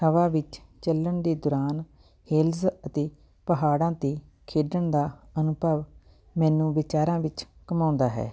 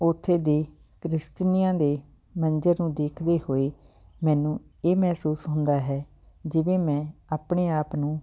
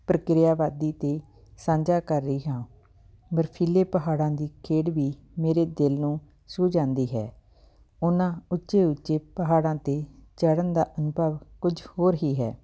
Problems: background sounds at intervals, background conversations at intervals